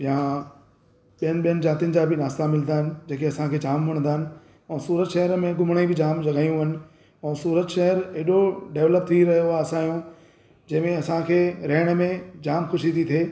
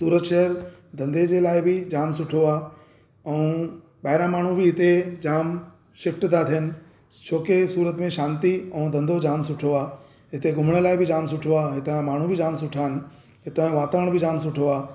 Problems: constant background noise, echo